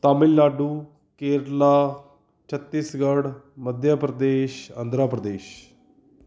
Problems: background conversations at intervals